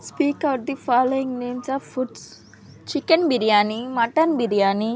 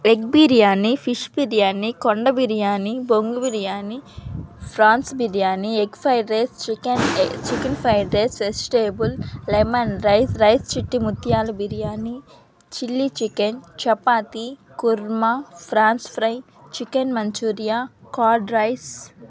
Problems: constant background noise